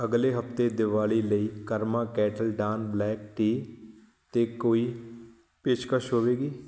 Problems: none marked